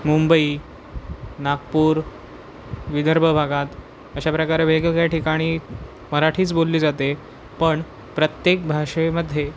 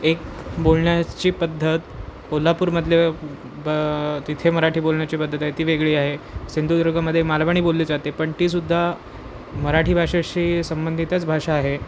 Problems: constant background noise